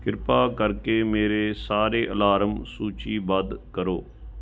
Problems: none marked